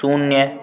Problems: background sounds at intervals